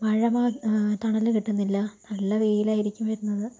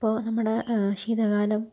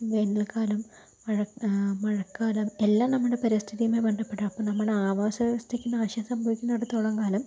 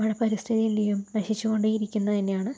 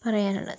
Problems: constant background noise, low volume